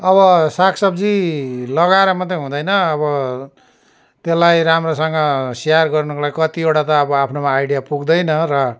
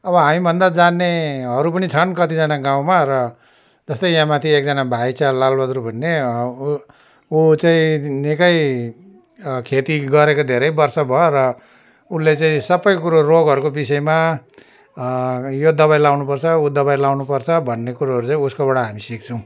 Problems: none marked